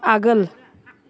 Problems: background sounds at intervals